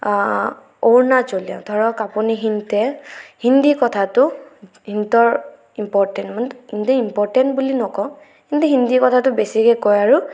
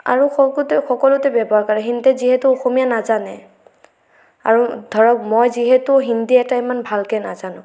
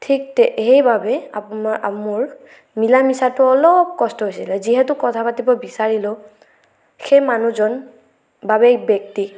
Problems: none marked